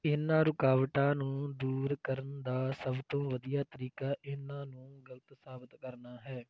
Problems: none marked